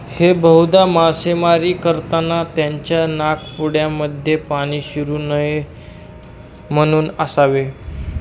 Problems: constant background noise, background conversations at intervals